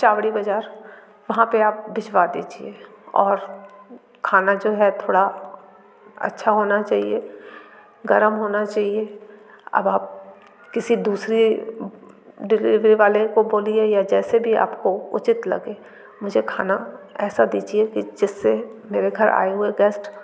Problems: constant background noise, continuous background conversations